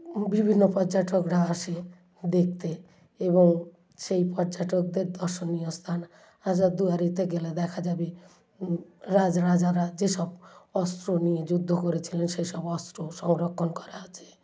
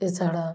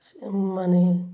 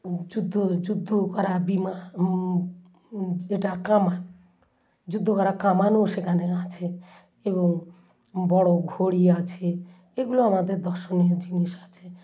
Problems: background sounds at intervals, low volume